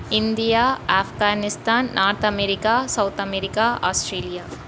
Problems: constant background noise